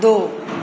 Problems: none marked